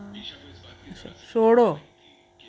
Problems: none marked